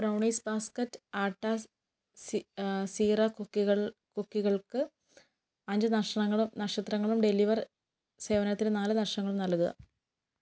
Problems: none marked